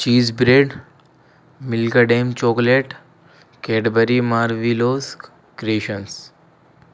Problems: constant background noise